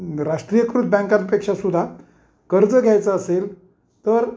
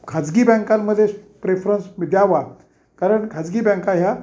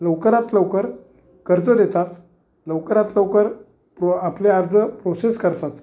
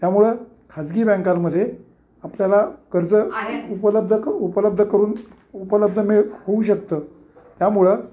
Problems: none marked